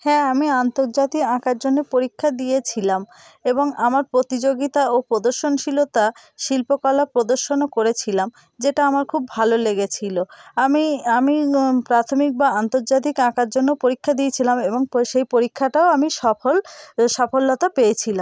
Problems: constant background noise